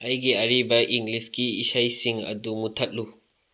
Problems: low volume